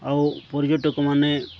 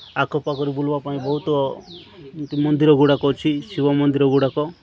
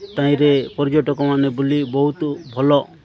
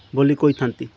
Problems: continuous background conversations